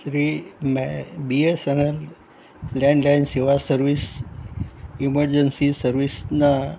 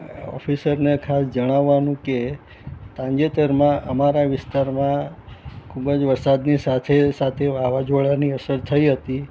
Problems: none marked